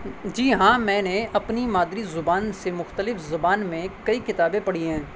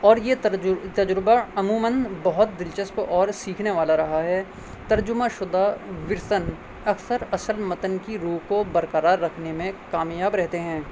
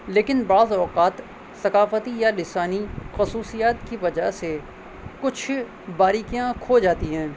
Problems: constant background noise